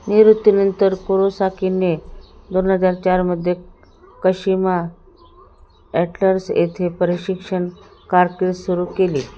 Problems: constant background noise